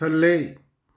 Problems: none marked